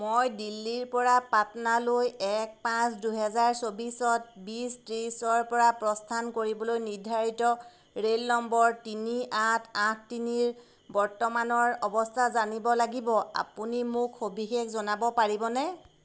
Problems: constant background noise